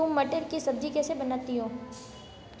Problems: background sounds at intervals, low volume